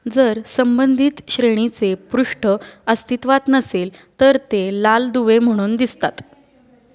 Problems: none marked